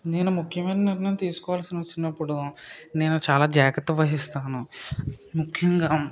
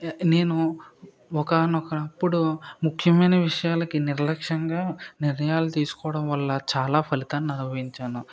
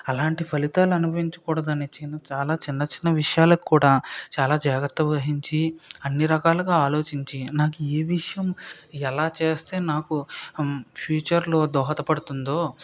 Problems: background sounds at intervals